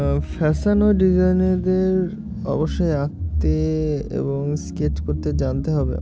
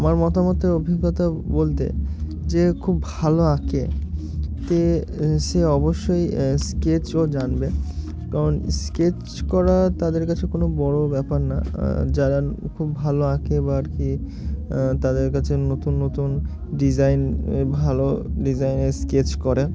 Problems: constant background noise